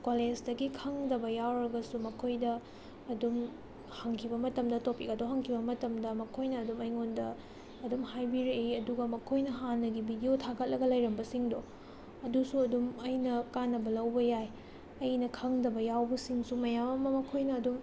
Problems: background sounds at intervals, low volume